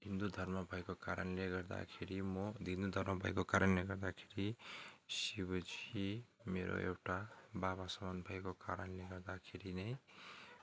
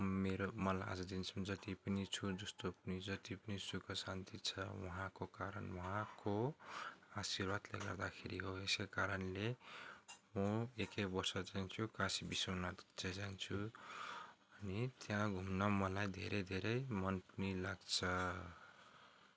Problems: constant background noise